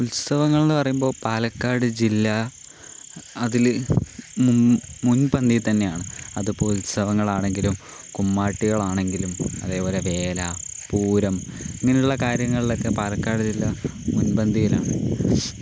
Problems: constant background noise